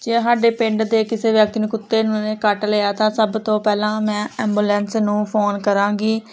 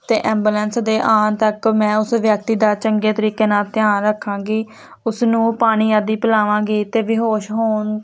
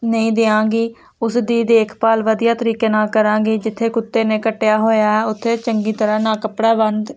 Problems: constant background noise